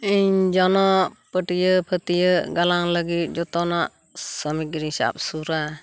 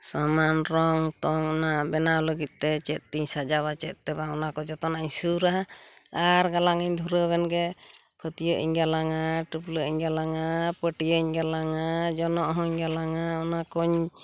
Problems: constant background noise